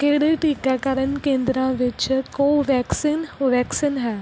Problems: background sounds at intervals